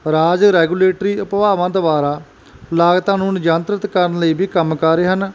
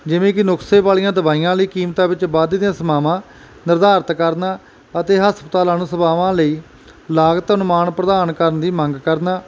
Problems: background sounds at intervals